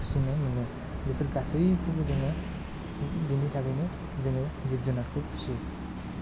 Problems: low volume